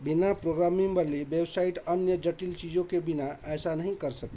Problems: none marked